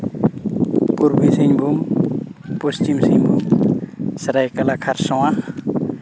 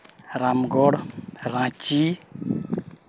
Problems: constant background noise, background conversations at intervals